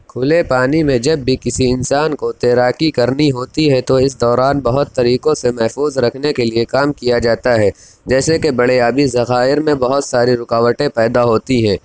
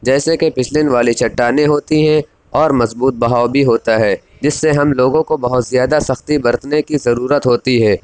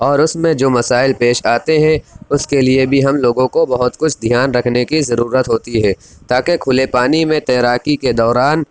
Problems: none marked